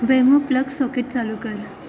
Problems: constant background noise, background conversations at intervals